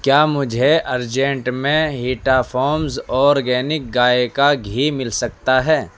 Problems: none marked